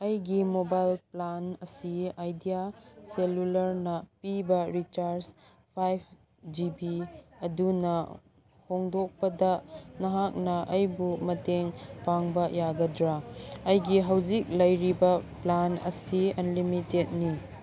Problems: background sounds at intervals, background conversations at intervals